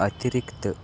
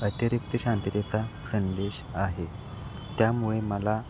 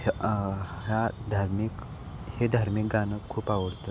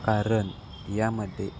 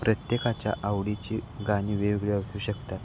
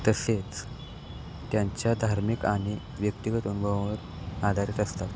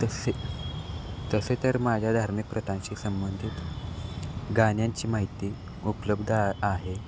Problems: constant background noise, background conversations at intervals